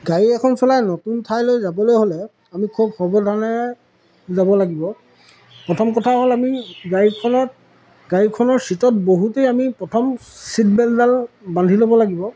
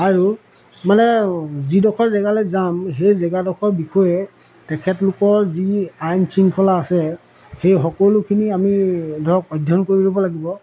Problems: none marked